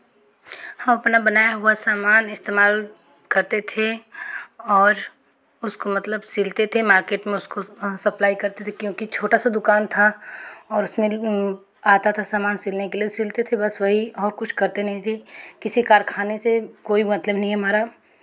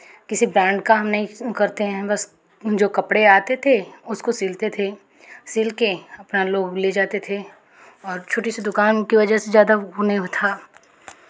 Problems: constant background noise